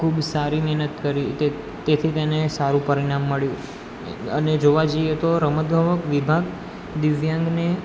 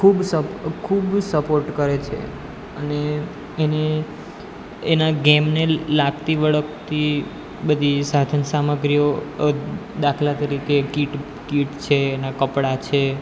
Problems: none marked